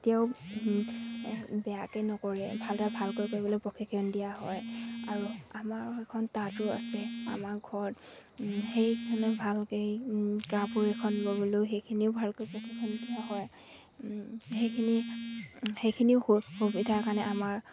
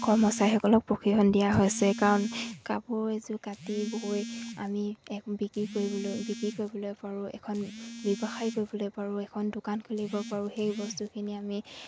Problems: constant background noise